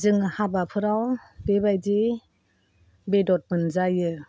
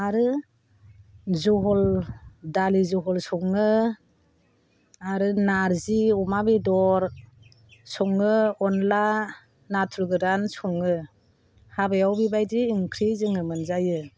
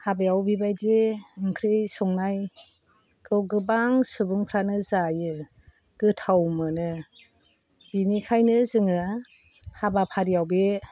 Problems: low volume